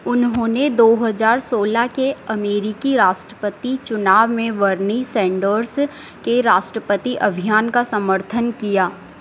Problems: constant background noise